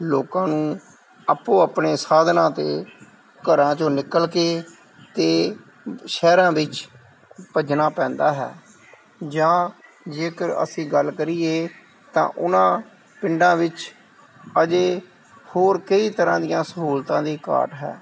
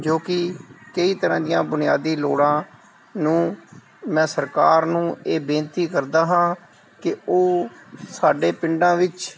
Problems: none marked